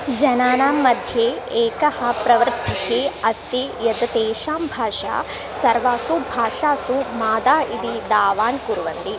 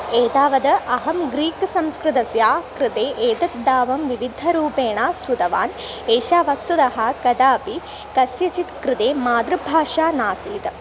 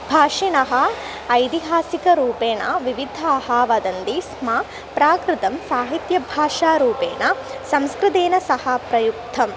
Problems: constant background noise